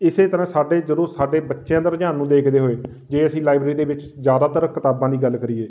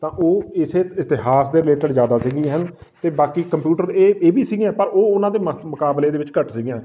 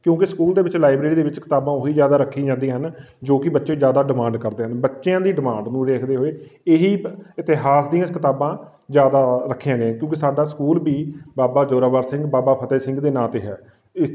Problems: none marked